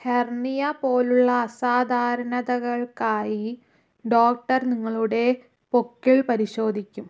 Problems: none marked